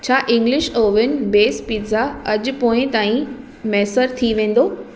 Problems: constant background noise, echo